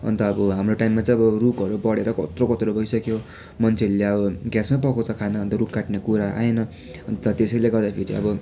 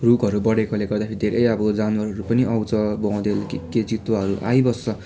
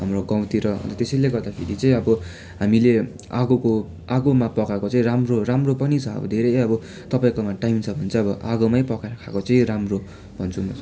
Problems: none marked